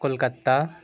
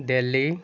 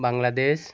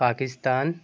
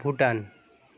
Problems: none marked